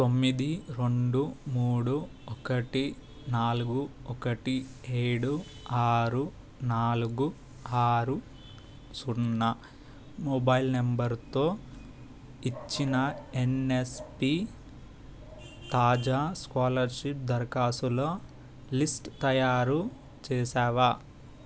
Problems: constant background noise